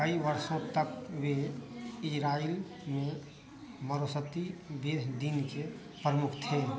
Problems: constant background noise